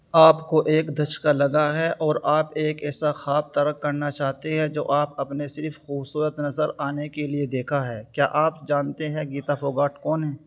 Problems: none marked